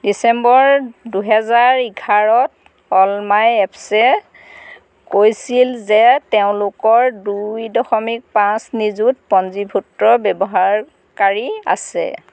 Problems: none marked